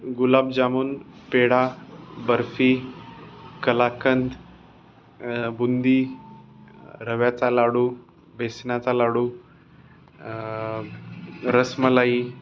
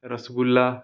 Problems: constant background noise, background conversations at intervals